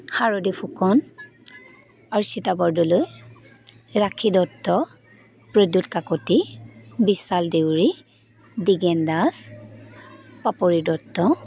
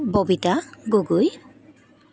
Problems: continuous background conversations